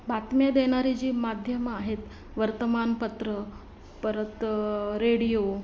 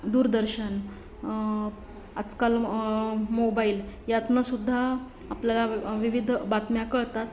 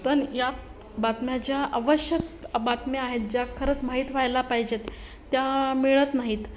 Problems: constant background noise, continuous background conversations